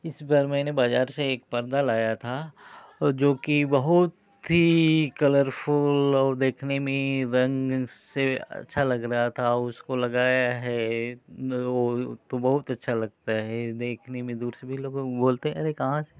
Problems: constant background noise